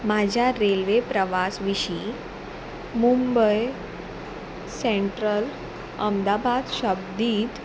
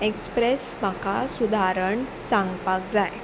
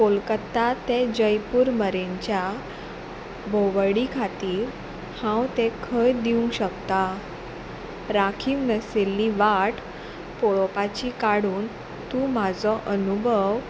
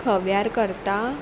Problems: none marked